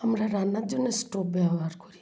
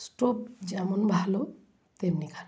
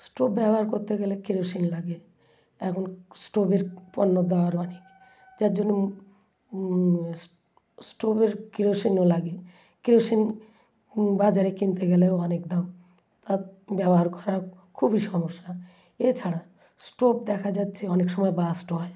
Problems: constant background noise